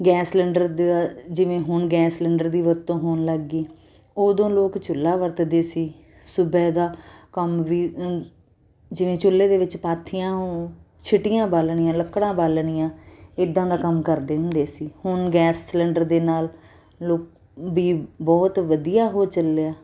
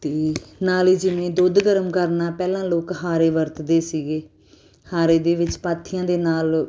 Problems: none marked